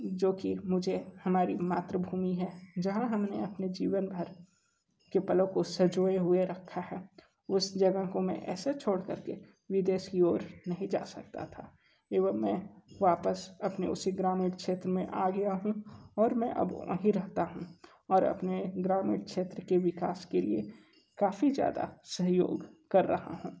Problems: none marked